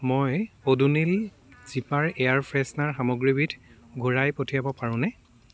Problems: background sounds at intervals, continuous background conversations